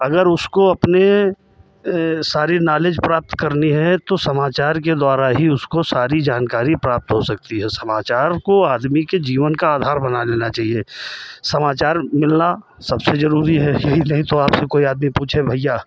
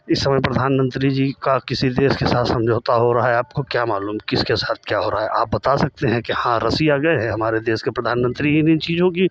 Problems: none marked